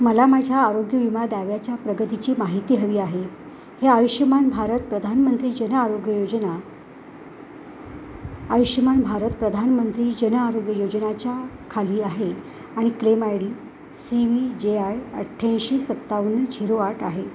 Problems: constant background noise